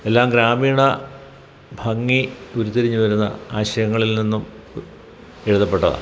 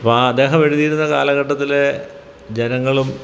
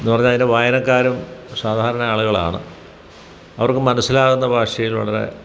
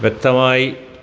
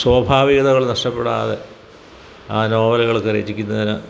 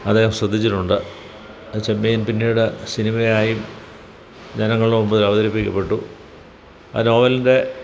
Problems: background sounds at intervals